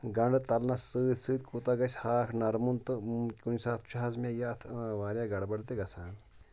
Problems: none marked